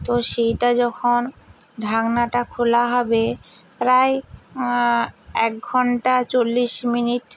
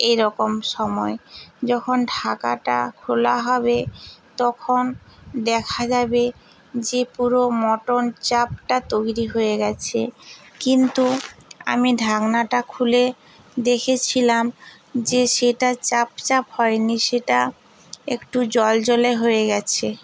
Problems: background sounds at intervals